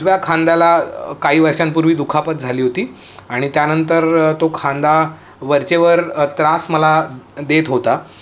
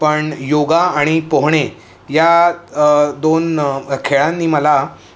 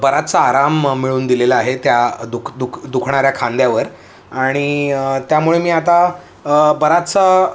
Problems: none marked